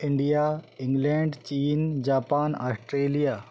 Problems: background sounds at intervals